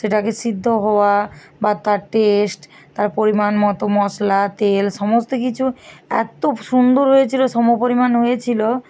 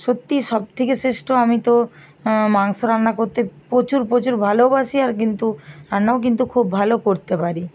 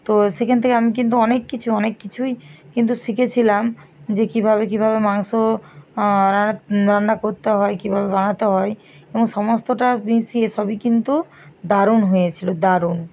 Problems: constant background noise